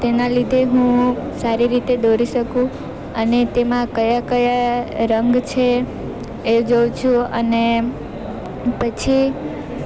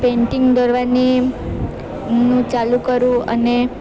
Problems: constant background noise